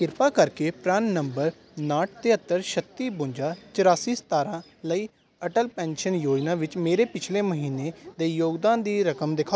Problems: constant background noise